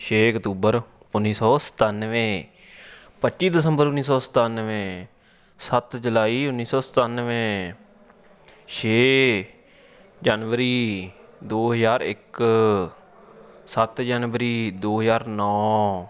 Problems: constant background noise